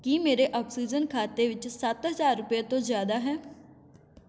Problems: constant background noise